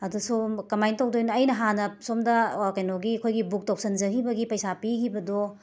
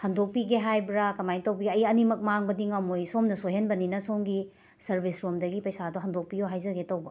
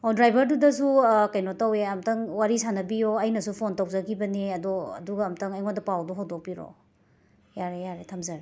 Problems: background sounds at intervals